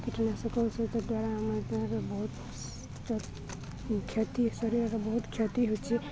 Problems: constant background noise, continuous background conversations